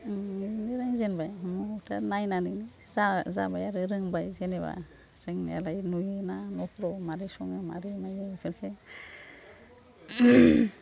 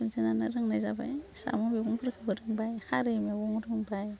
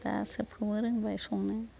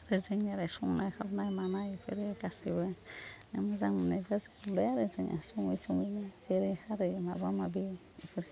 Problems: none marked